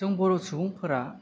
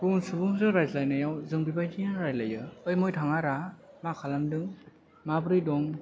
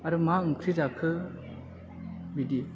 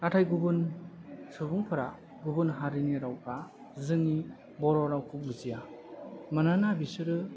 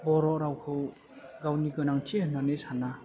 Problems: low volume